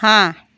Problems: constant background noise